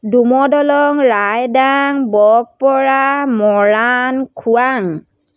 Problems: none marked